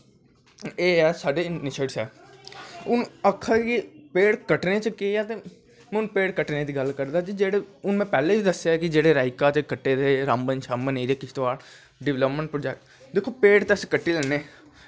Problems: constant background noise